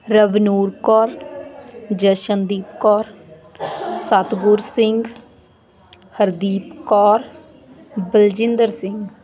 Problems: continuous background conversations